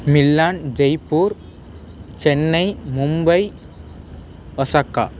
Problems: constant background noise